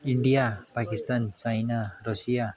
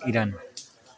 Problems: none marked